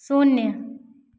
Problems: constant background noise, echo